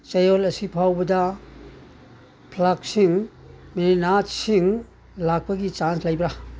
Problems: background sounds at intervals